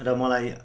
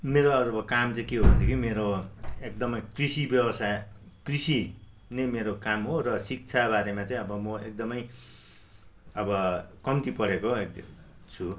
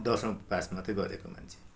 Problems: none marked